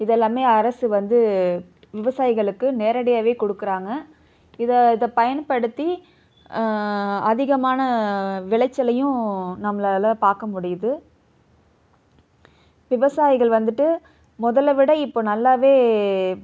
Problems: none marked